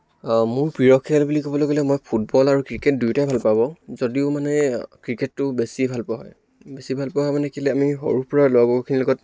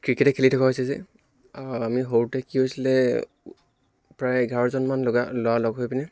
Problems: none marked